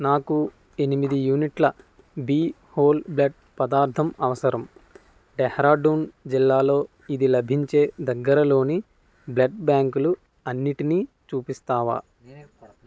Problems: constant background noise, background conversations at intervals